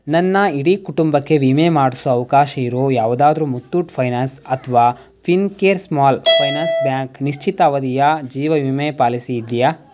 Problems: background sounds at intervals